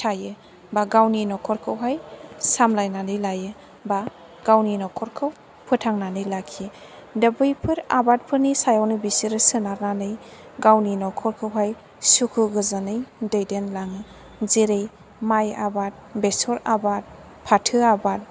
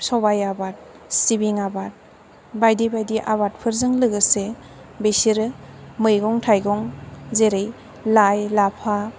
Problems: background sounds at intervals